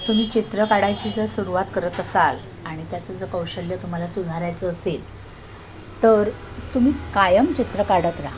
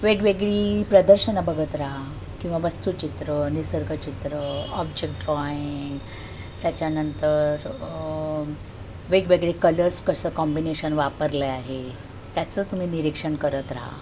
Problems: constant background noise